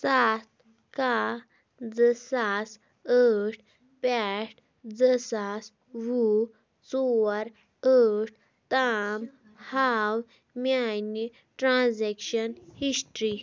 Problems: background conversations at intervals